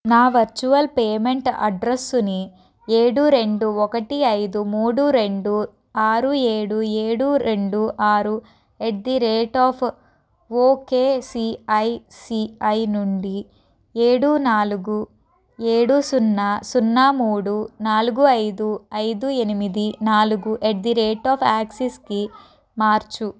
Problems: background conversations at intervals